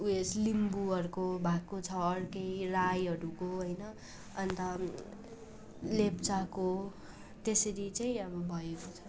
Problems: constant background noise, continuous background conversations